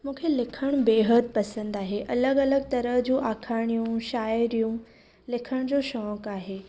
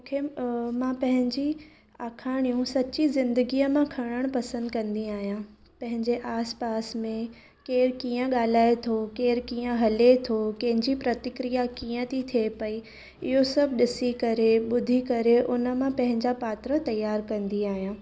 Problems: none marked